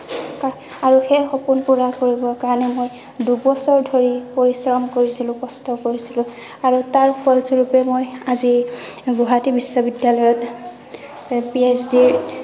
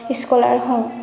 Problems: constant background noise, background conversations at intervals